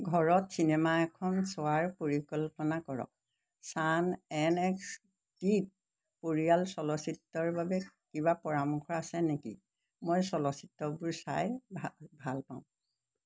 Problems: constant background noise